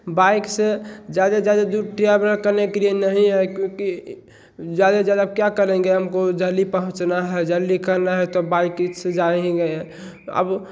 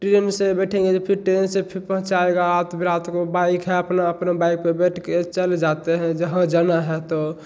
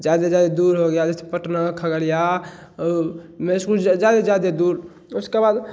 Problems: none marked